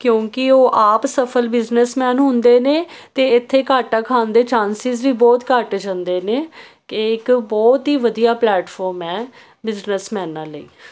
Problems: none marked